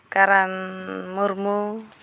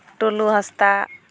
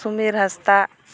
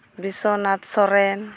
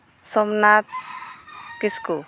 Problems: background sounds at intervals